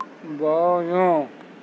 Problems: constant background noise